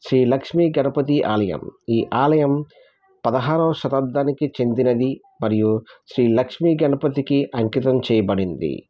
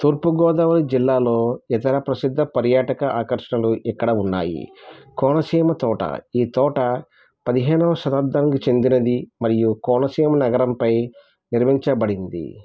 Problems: none marked